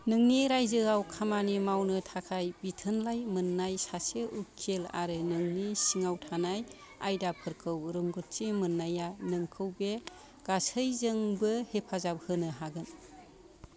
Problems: background conversations at intervals